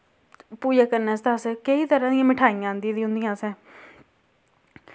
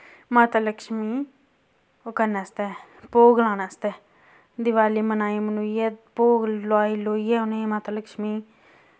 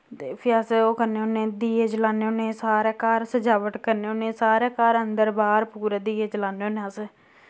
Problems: none marked